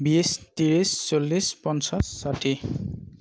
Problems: none marked